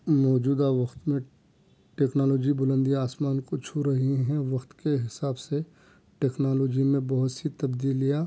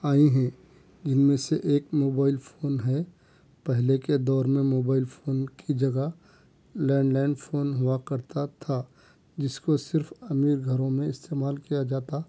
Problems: none marked